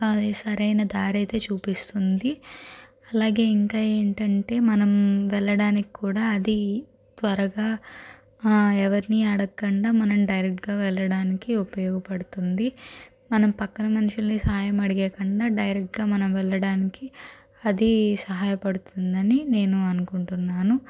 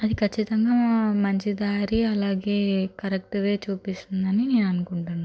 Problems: constant background noise